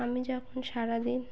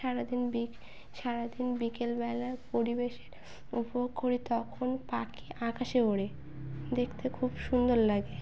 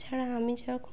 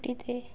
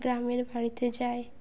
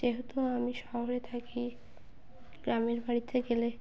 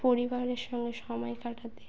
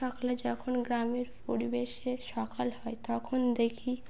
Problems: background sounds at intervals